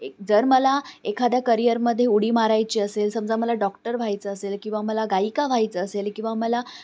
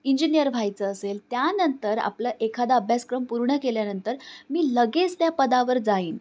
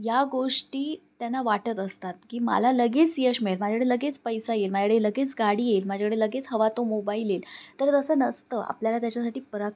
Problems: none marked